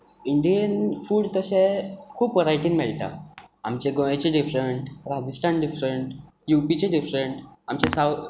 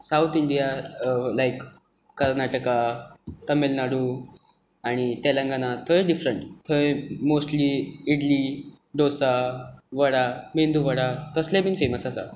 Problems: background sounds at intervals